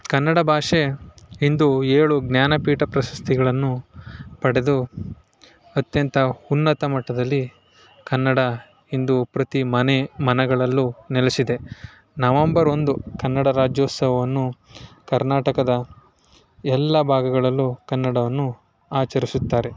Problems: none marked